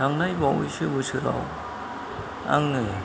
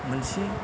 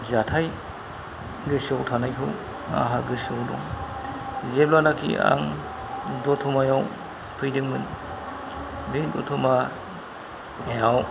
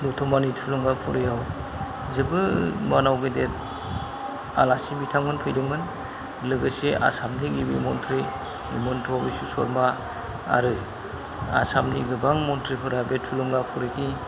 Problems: low volume